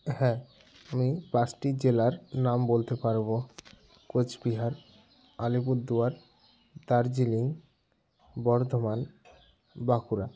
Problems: constant background noise